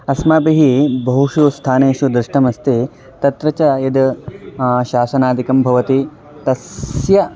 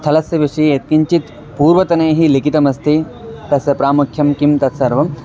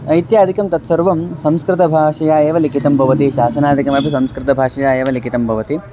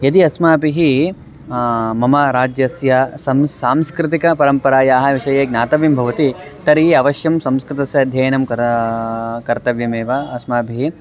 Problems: constant background noise, continuous background conversations